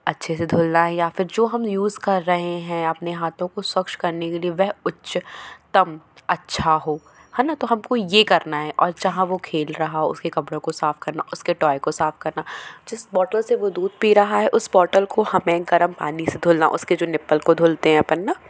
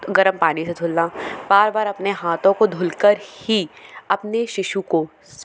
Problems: none marked